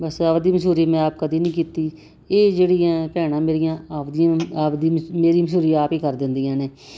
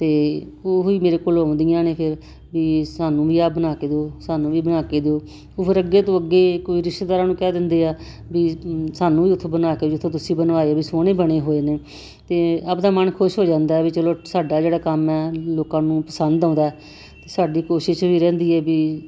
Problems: constant background noise